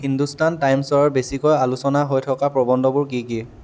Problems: none marked